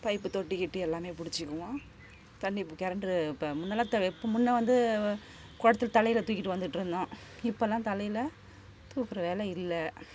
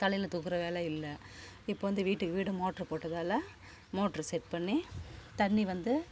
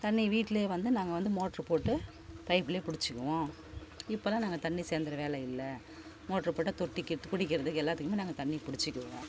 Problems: constant background noise